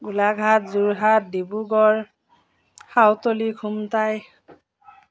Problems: none marked